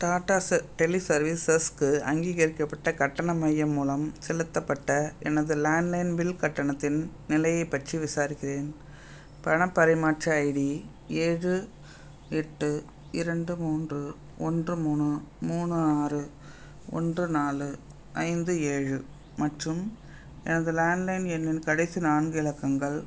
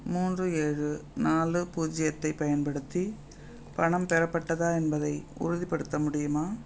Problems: none marked